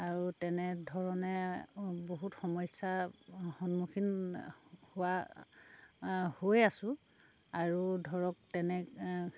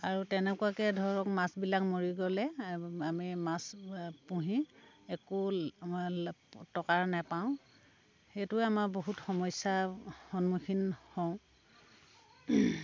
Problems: none marked